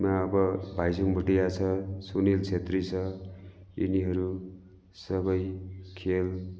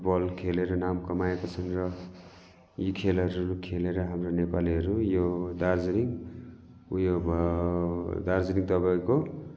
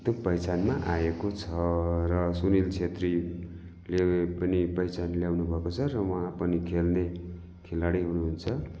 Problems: continuous background conversations